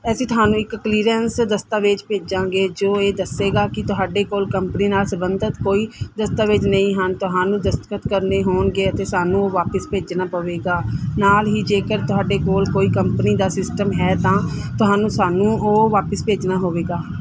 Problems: background sounds at intervals